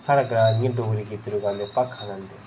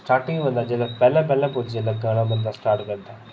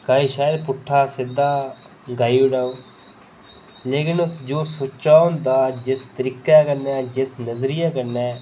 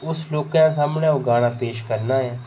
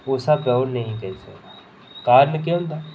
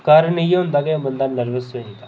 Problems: none marked